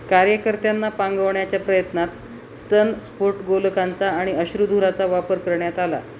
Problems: constant background noise, background conversations at intervals